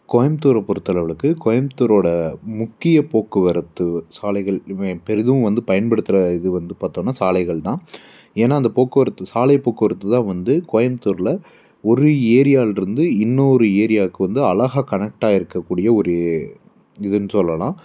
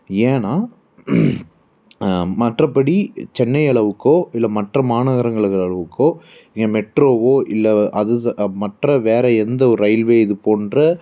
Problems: none marked